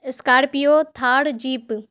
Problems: none marked